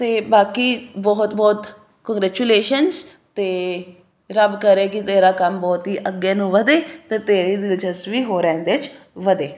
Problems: none marked